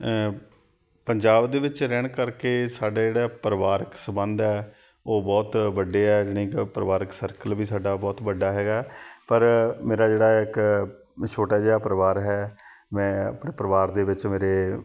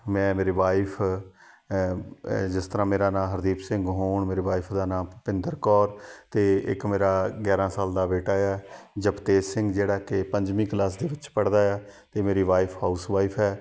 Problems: background sounds at intervals, background conversations at intervals